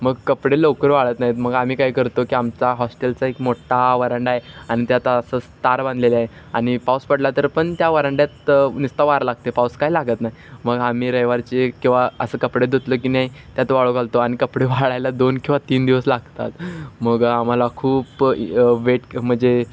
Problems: constant background noise